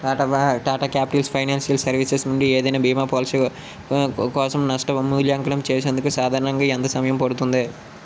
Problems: constant background noise